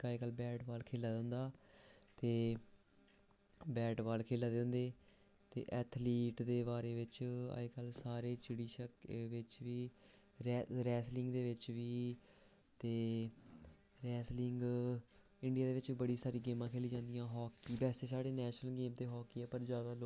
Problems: none marked